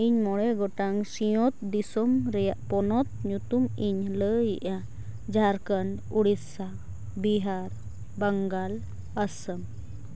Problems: constant background noise